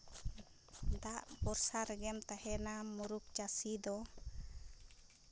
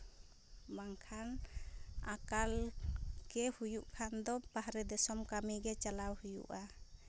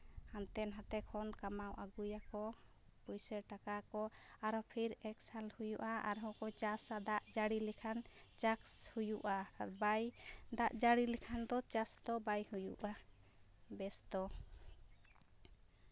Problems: background sounds at intervals